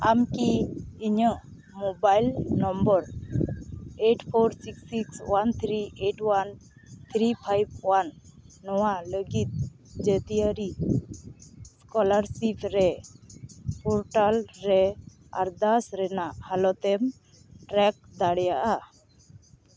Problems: constant background noise